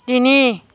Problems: none marked